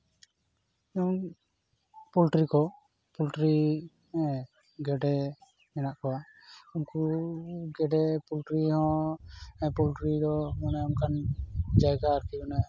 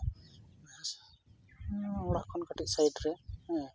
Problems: none marked